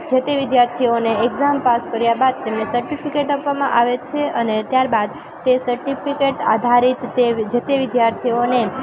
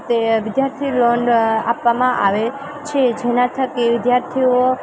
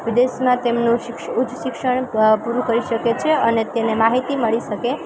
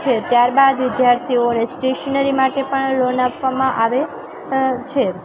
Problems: constant background noise